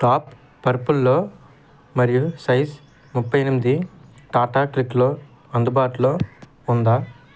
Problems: constant background noise